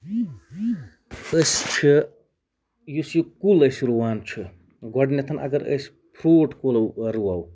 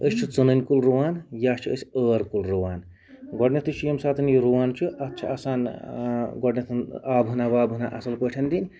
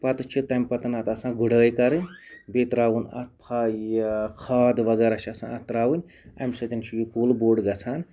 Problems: background sounds at intervals